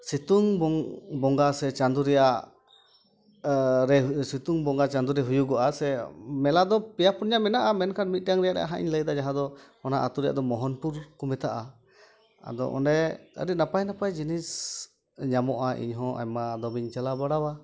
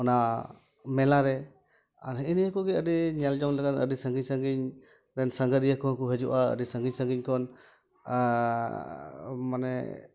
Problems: constant background noise, continuous background conversations